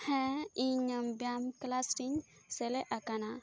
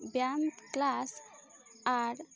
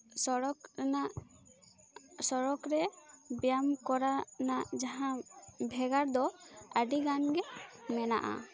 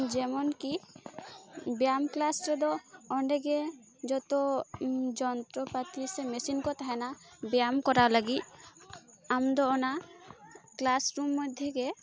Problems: constant background noise, continuous background conversations